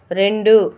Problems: constant background noise